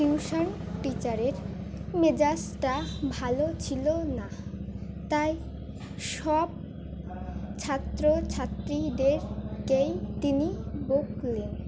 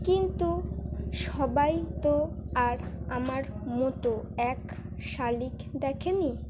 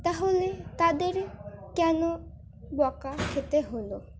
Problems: background sounds at intervals